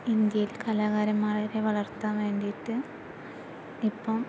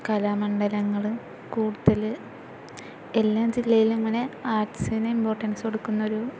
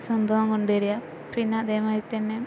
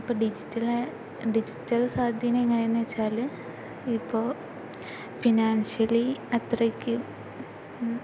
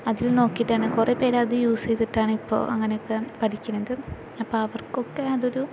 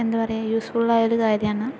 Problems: background sounds at intervals